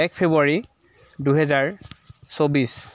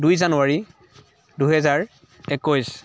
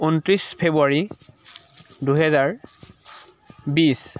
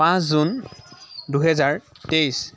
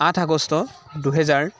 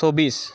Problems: constant background noise, background conversations at intervals